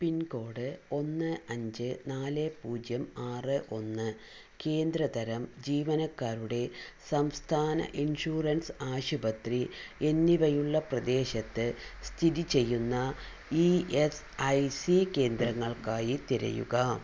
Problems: low volume